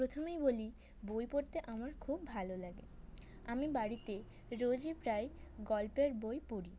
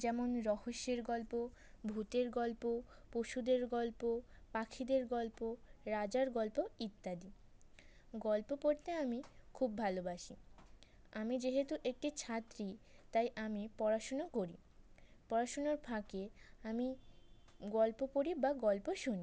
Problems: background sounds at intervals